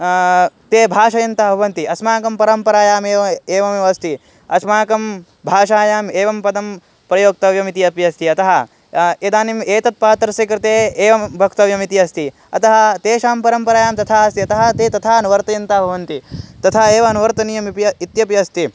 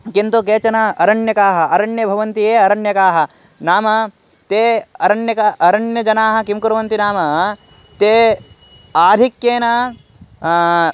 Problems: background sounds at intervals